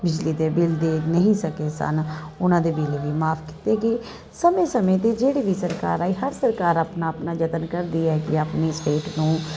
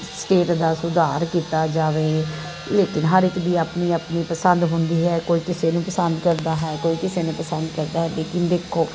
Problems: constant background noise